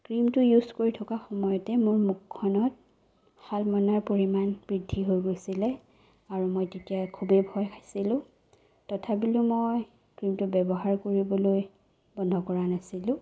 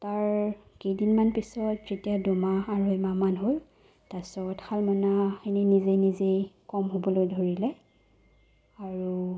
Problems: none marked